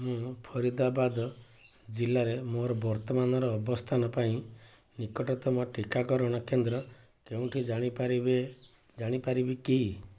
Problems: constant background noise